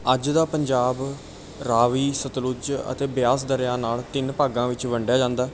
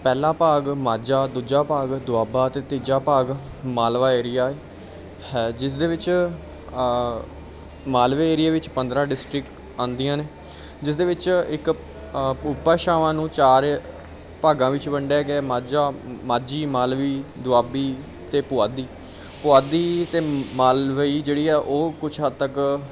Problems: background sounds at intervals, background conversations at intervals